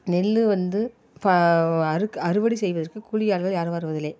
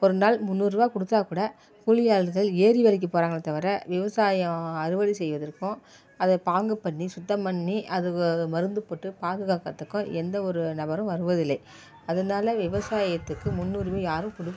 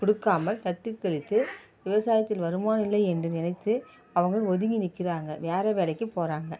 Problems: background sounds at intervals